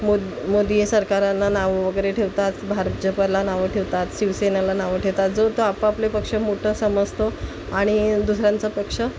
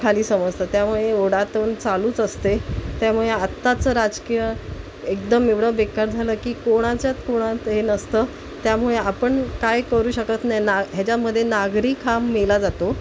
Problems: constant background noise